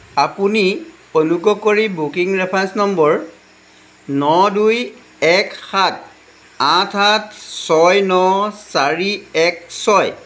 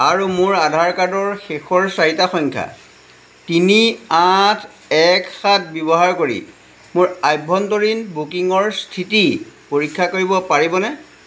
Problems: background sounds at intervals